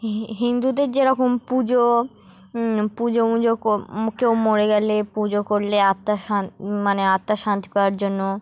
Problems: background sounds at intervals